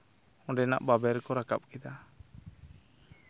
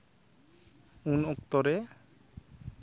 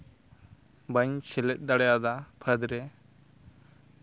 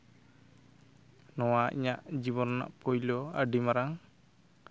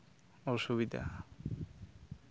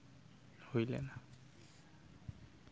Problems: background sounds at intervals